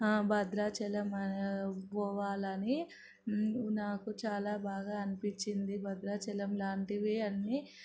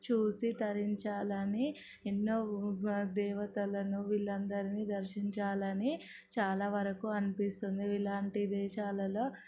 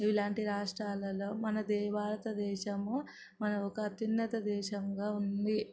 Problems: none marked